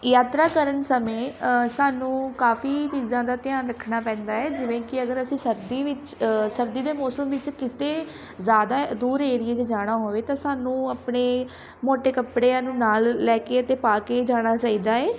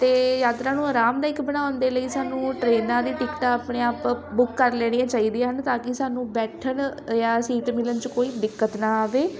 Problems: continuous background conversations